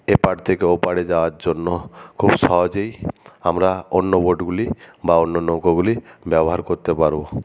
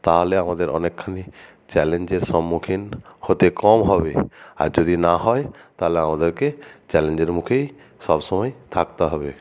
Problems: none marked